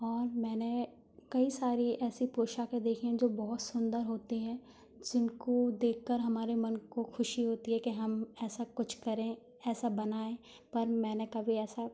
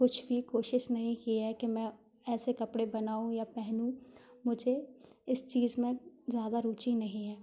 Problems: constant background noise